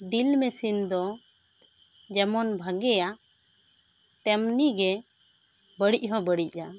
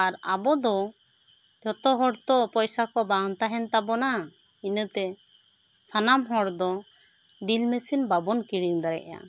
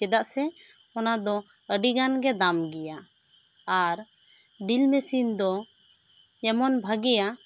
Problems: constant background noise